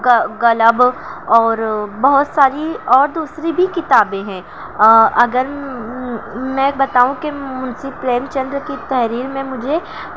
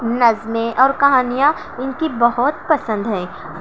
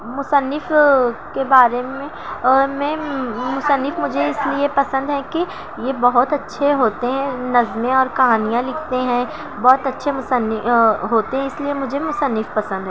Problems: constant background noise